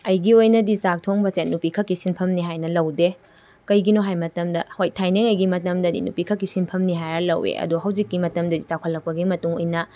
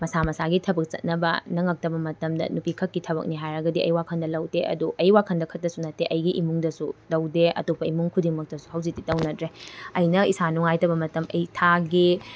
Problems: none marked